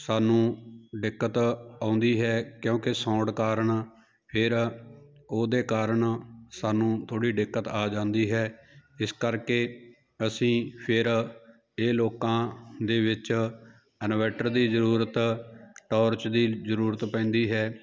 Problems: none marked